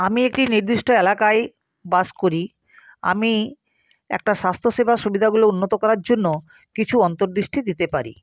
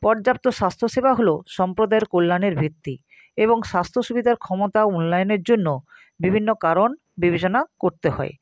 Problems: constant background noise